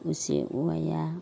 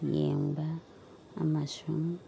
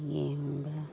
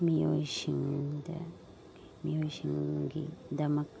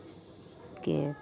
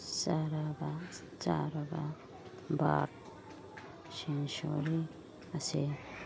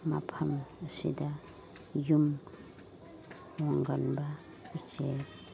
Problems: constant background noise